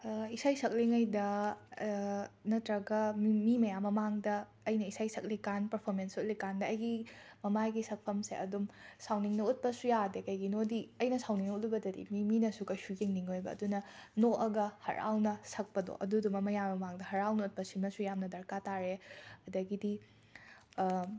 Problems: background sounds at intervals